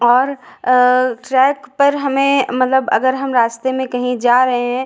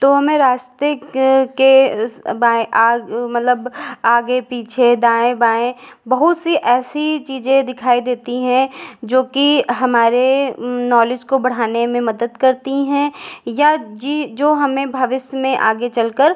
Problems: echo